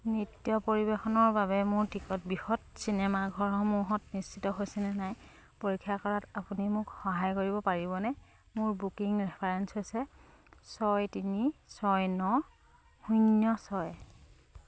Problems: none marked